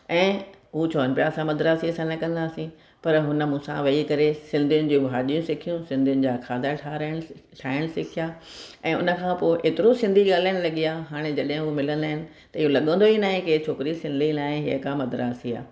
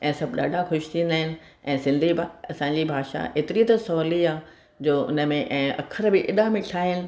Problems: none marked